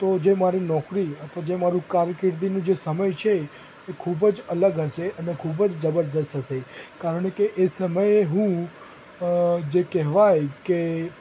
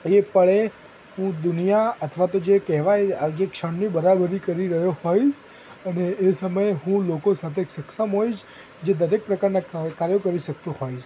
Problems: constant background noise